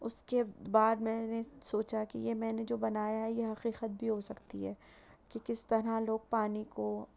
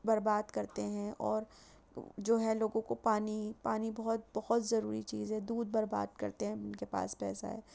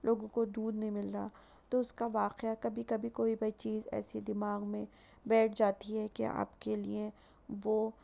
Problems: constant background noise